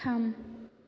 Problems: constant background noise